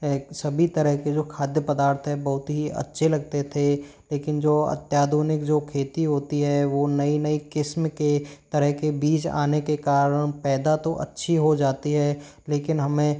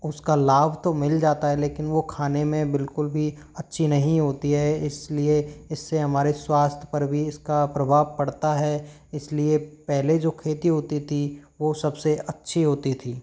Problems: none marked